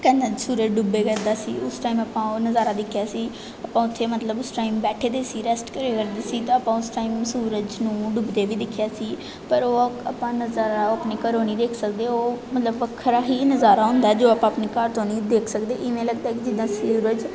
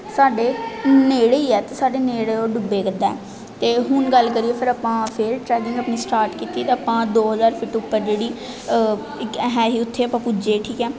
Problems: none marked